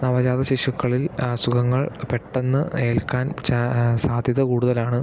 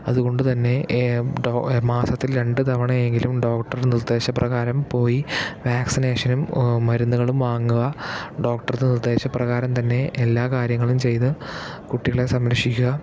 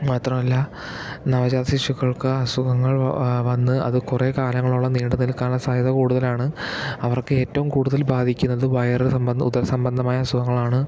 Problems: none marked